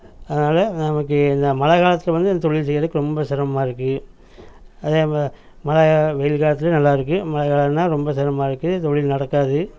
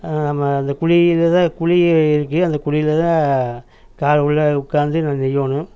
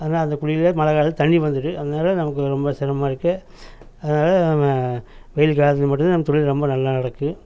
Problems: none marked